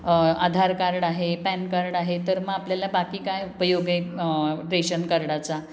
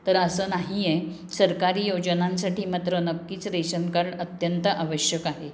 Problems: background sounds at intervals, background conversations at intervals